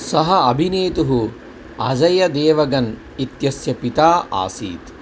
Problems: constant background noise